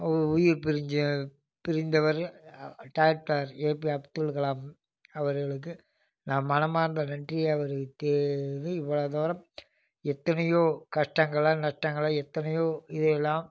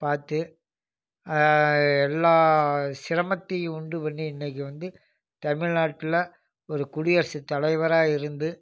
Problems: none marked